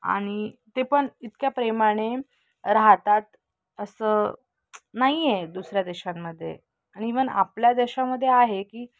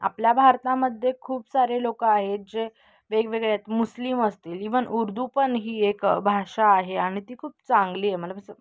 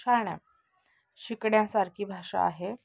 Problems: none marked